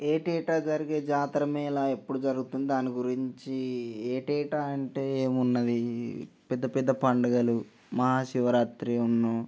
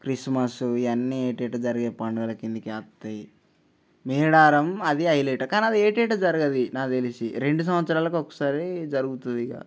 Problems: none marked